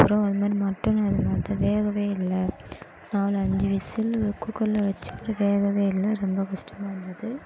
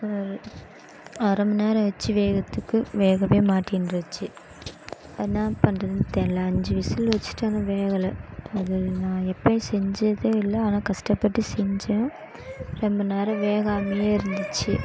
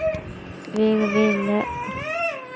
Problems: background sounds at intervals